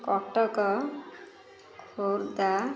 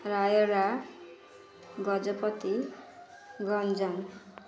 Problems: constant background noise, continuous background conversations